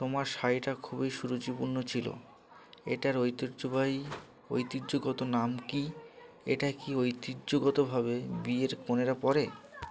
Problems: none marked